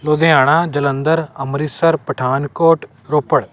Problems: constant background noise